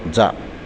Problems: constant background noise, continuous background conversations